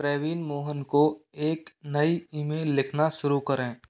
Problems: background sounds at intervals, echo